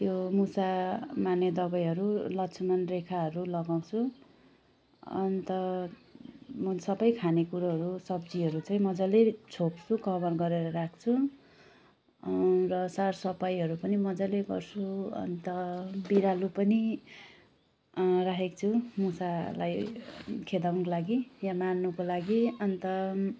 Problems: none marked